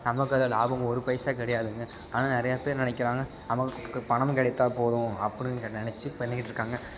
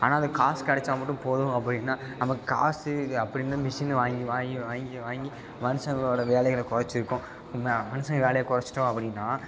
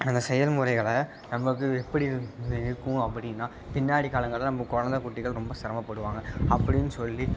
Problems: constant background noise